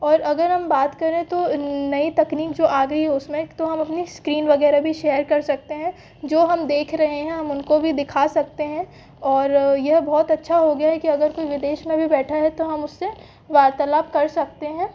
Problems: background sounds at intervals